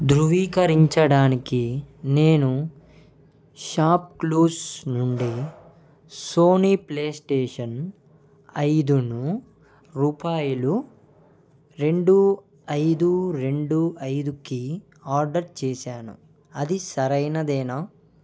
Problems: background sounds at intervals